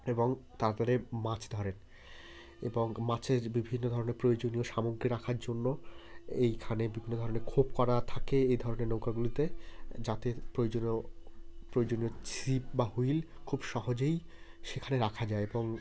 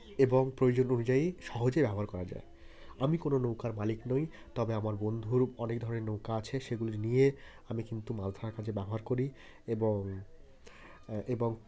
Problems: constant background noise, continuous background conversations